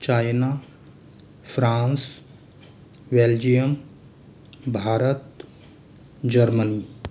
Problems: constant background noise